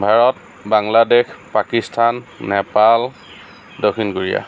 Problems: none marked